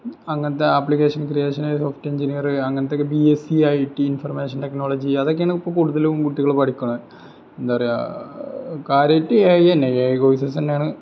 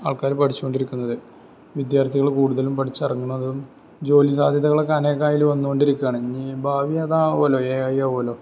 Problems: background sounds at intervals